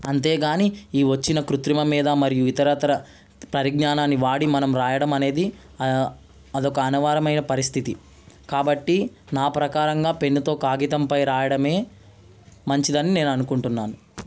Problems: constant background noise